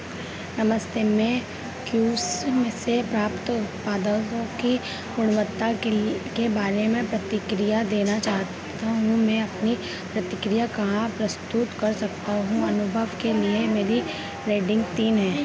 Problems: constant background noise